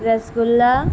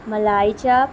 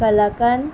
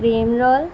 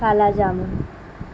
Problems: constant background noise